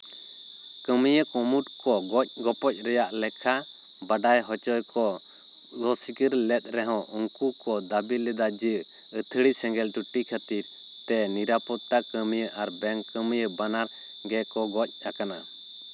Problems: constant background noise